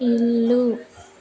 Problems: background conversations at intervals